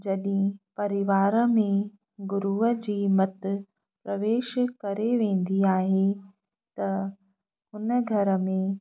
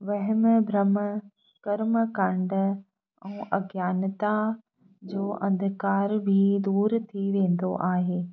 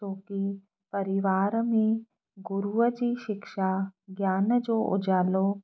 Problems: background sounds at intervals